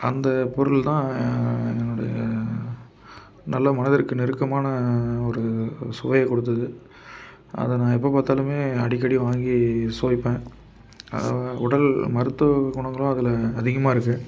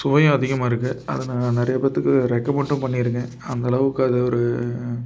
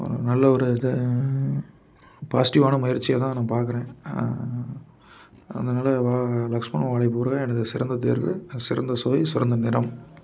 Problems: constant background noise